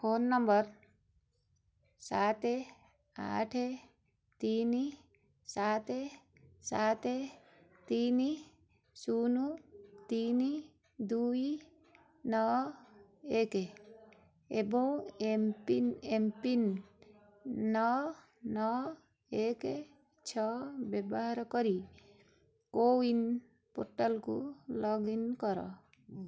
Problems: constant background noise